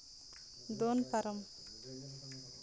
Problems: background conversations at intervals